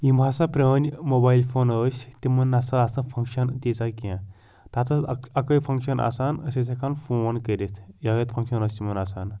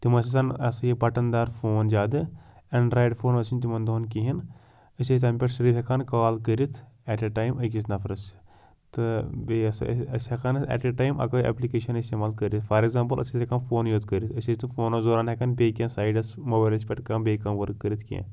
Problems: none marked